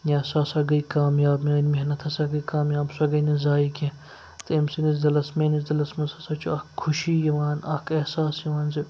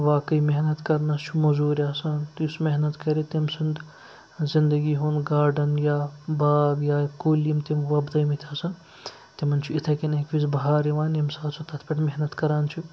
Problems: constant background noise